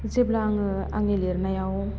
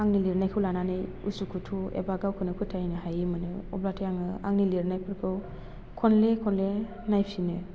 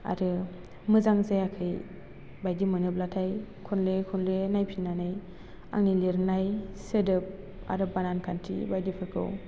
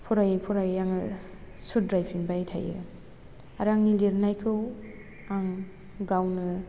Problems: constant background noise